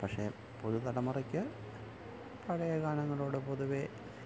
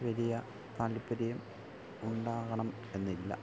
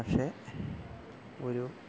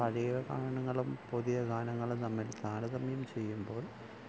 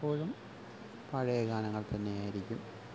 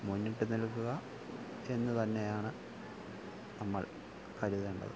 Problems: none marked